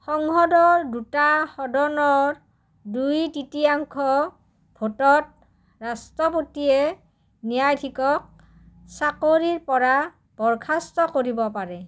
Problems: low volume